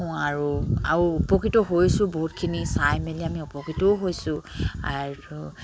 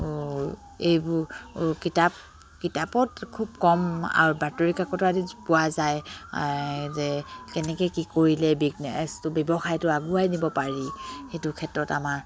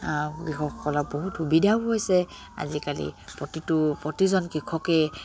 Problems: none marked